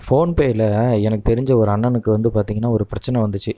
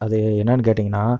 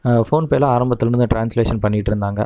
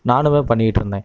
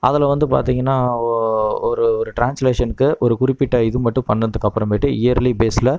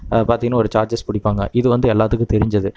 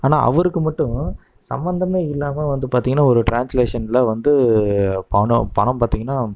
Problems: none marked